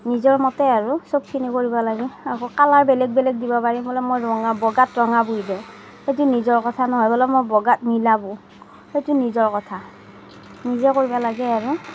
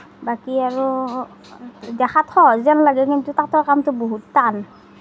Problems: none marked